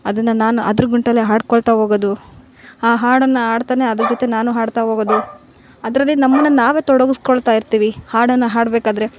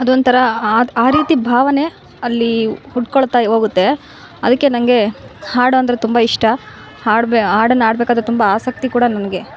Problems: background sounds at intervals